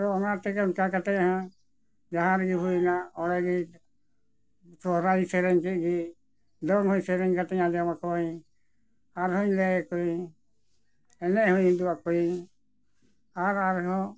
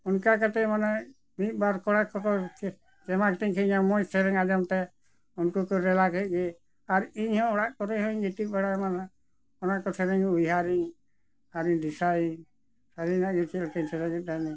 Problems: none marked